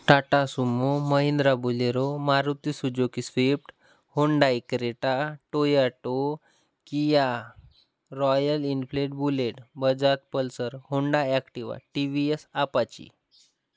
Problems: constant background noise